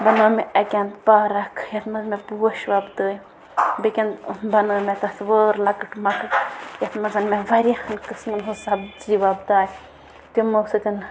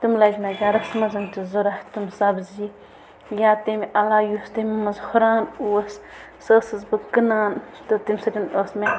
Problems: constant background noise